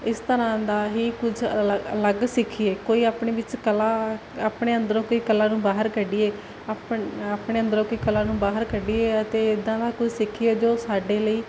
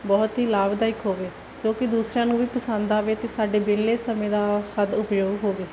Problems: none marked